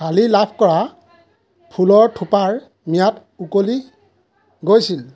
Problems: constant background noise, background conversations at intervals